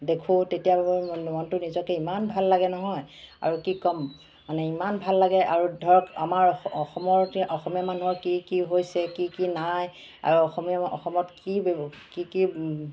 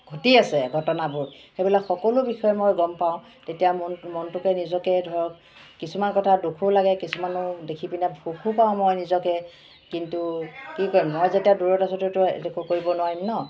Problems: constant background noise, background conversations at intervals